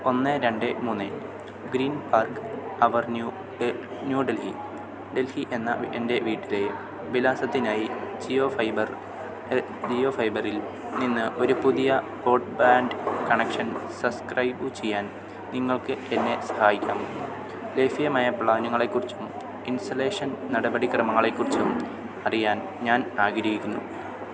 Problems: constant background noise